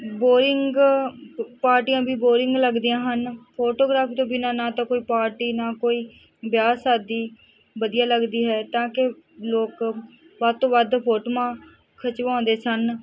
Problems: background conversations at intervals